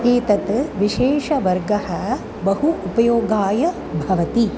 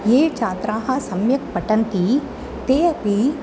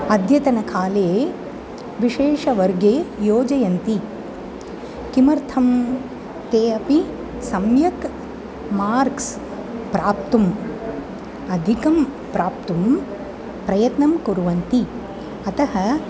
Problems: none marked